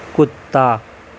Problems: constant background noise